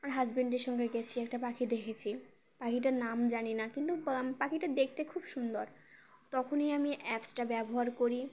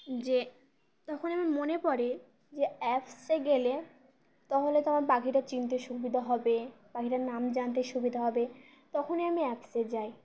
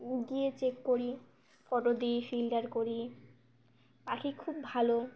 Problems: constant background noise